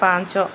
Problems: none marked